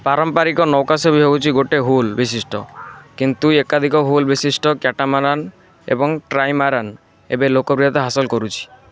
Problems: constant background noise